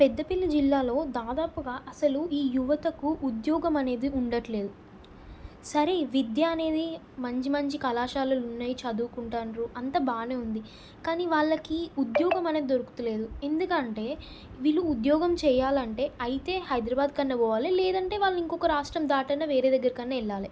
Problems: none marked